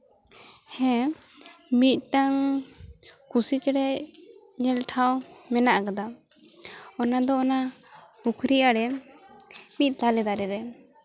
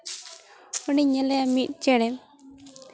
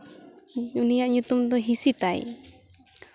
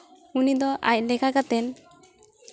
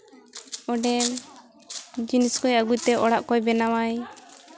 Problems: background sounds at intervals